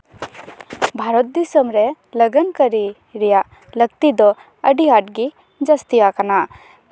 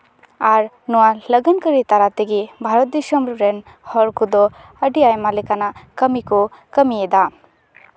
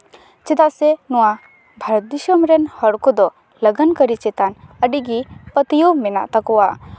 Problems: background sounds at intervals